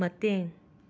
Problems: constant background noise